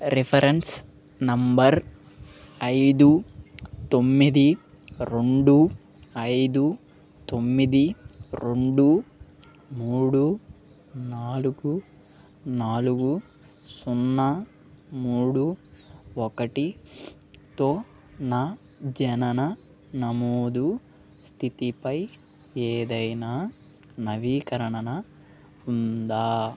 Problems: none marked